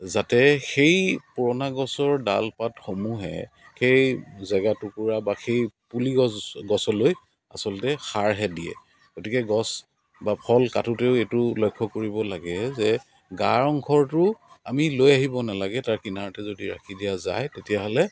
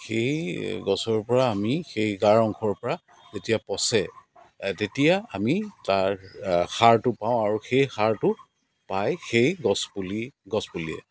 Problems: constant background noise, background conversations at intervals